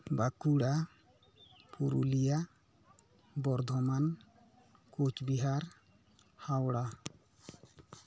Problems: background conversations at intervals